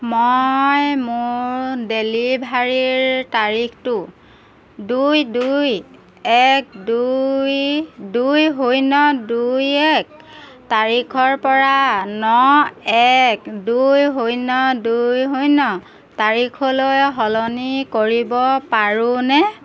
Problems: none marked